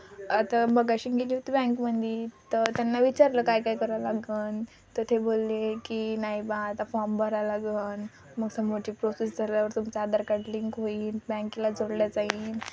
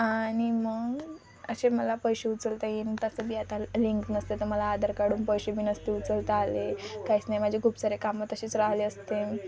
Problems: none marked